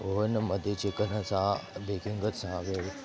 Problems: constant background noise, continuous background conversations